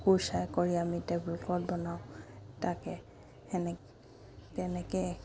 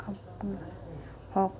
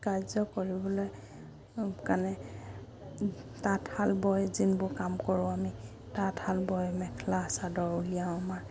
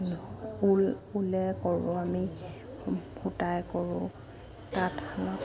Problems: constant background noise